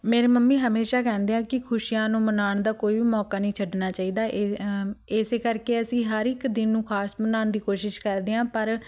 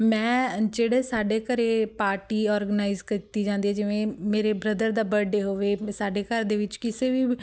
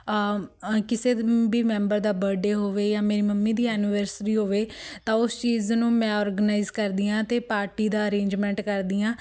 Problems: background sounds at intervals